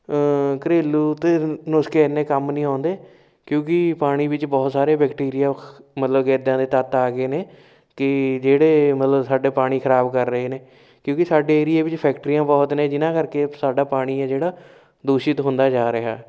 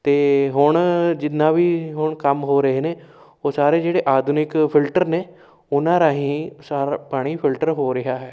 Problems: none marked